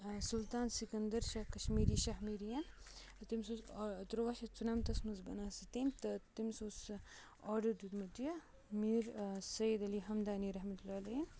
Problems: low volume